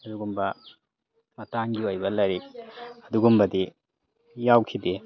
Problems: background conversations at intervals